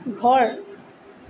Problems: constant background noise